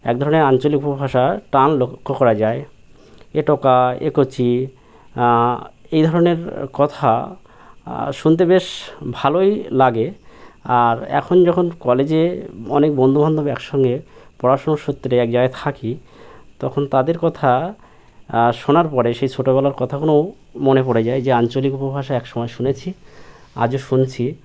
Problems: none marked